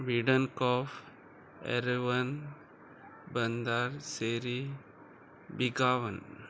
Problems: constant background noise